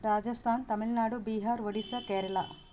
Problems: constant background noise